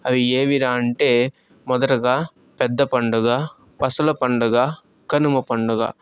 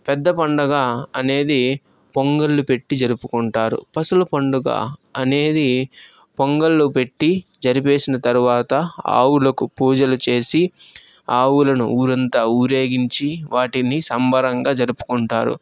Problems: background sounds at intervals